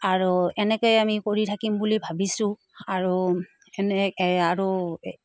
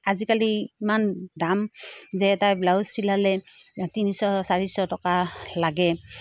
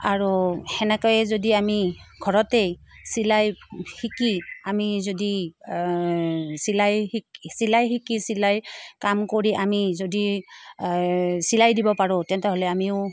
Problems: none marked